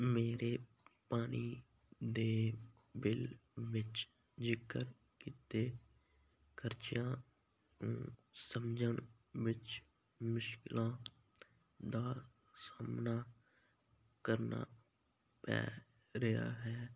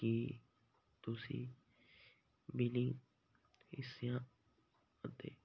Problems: none marked